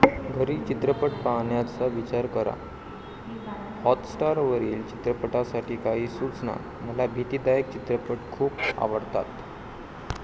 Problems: constant background noise